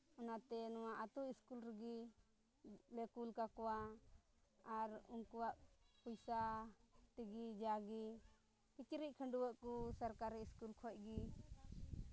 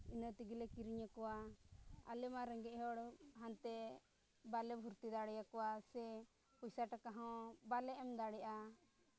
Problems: low volume